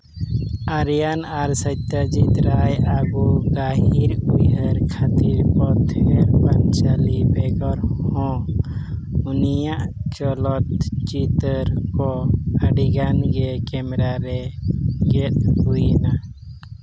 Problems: constant background noise